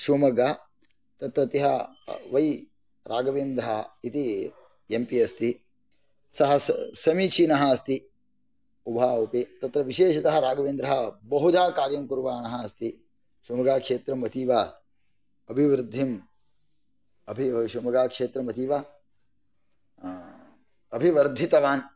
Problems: none marked